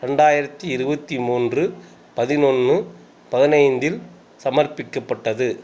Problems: constant background noise